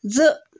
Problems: none marked